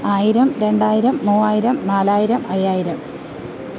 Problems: constant background noise